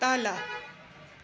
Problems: constant background noise